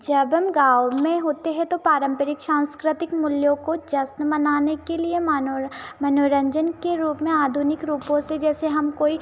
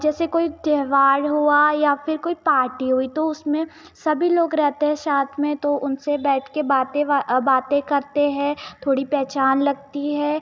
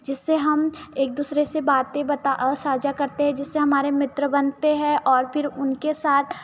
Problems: none marked